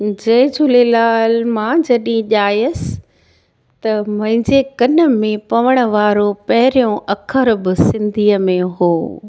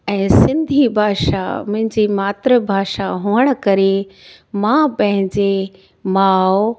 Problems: none marked